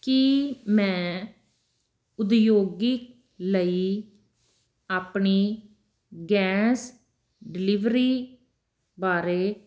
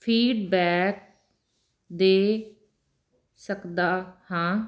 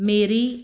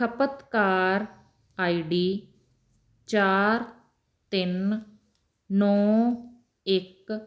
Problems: none marked